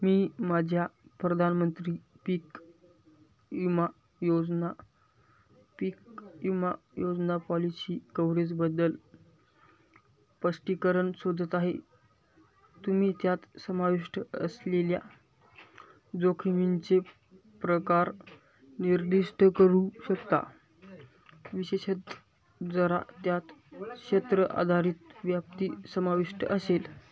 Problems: constant background noise, background conversations at intervals